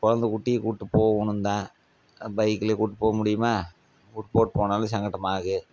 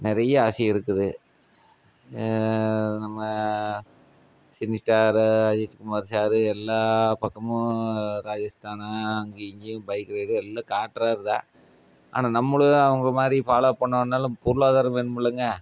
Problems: none marked